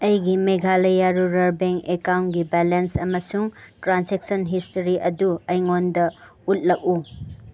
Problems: none marked